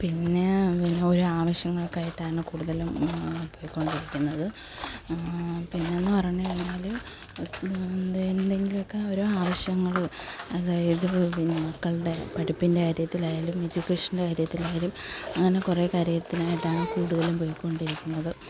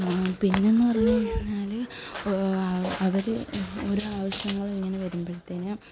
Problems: constant background noise, background conversations at intervals, low volume